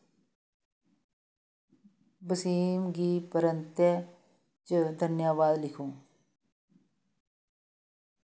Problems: background sounds at intervals